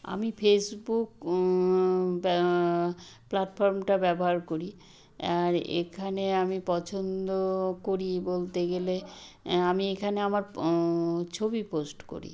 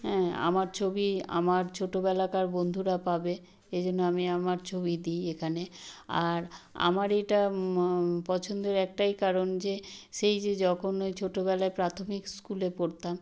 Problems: none marked